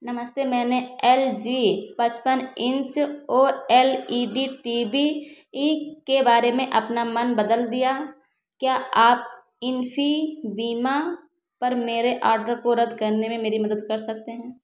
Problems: constant background noise